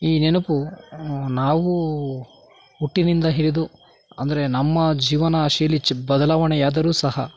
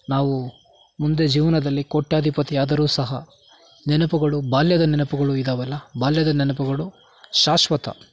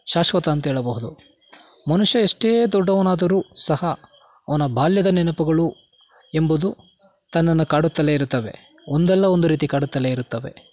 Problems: background sounds at intervals